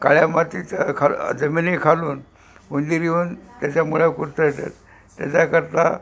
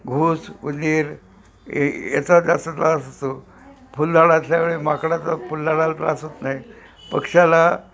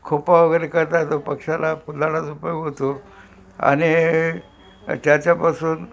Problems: constant background noise